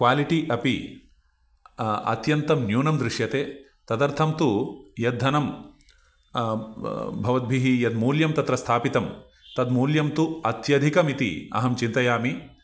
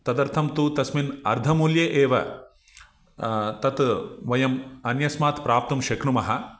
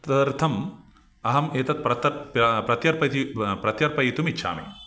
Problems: none marked